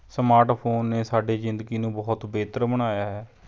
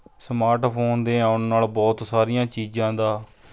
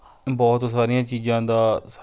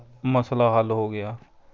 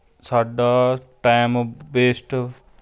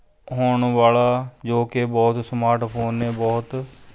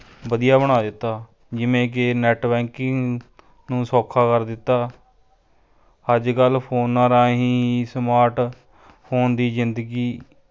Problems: continuous background conversations